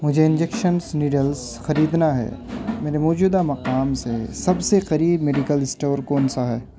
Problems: constant background noise